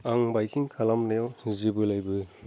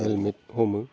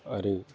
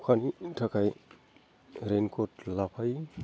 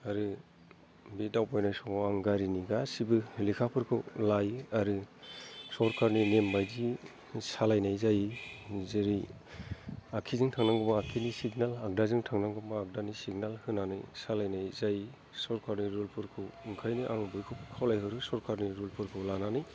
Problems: low volume